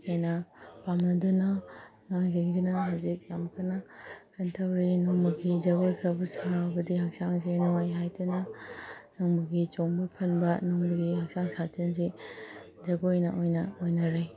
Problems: background sounds at intervals